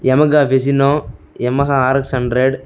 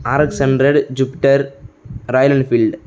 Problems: none marked